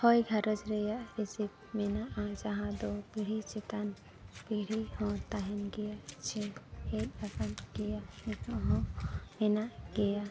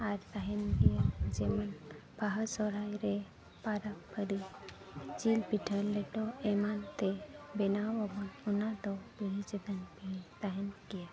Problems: constant background noise, low volume